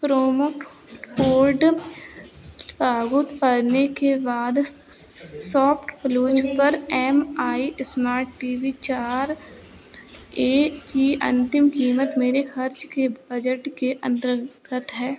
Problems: background sounds at intervals